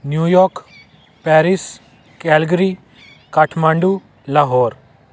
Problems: constant background noise